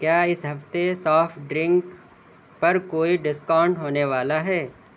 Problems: none marked